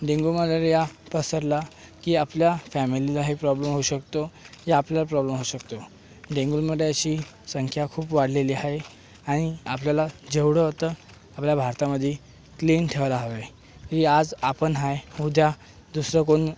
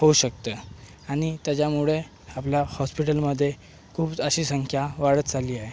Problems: constant background noise